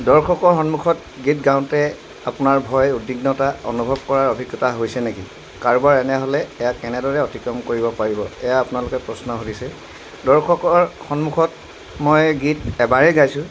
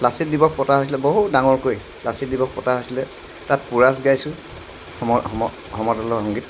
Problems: constant background noise